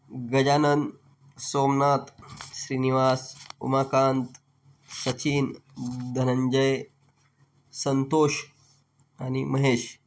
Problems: background sounds at intervals